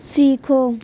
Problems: none marked